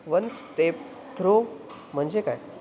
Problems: constant background noise